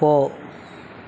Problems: background sounds at intervals, background conversations at intervals